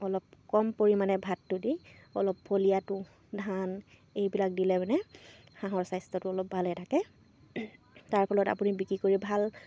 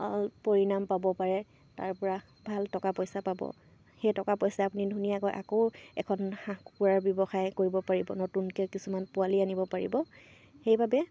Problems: constant background noise